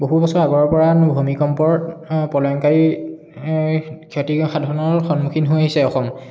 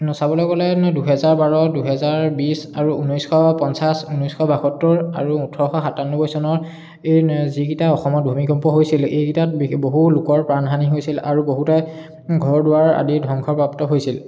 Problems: background sounds at intervals, background conversations at intervals, echo